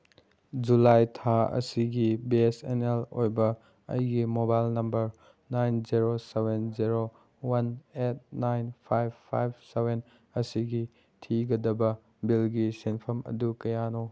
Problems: none marked